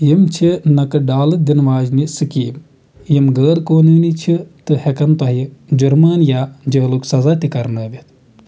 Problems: constant background noise